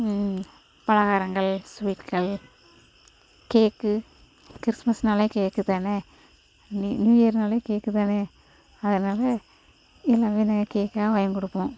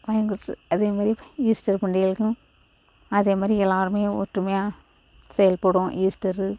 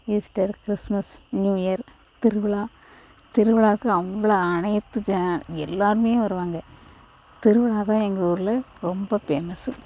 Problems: constant background noise